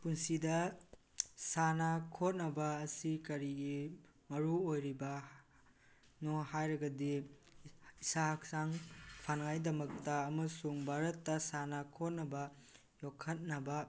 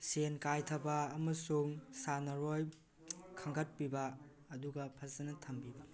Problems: none marked